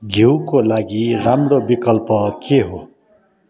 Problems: continuous background conversations